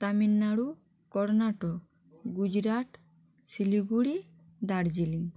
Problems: constant background noise